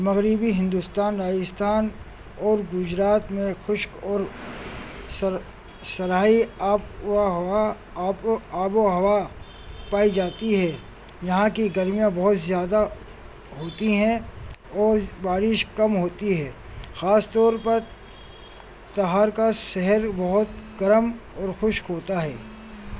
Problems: constant background noise